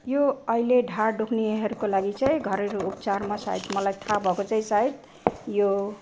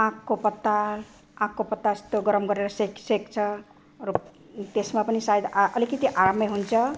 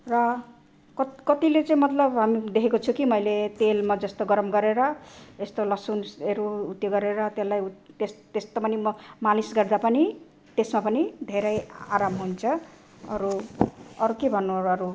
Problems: constant background noise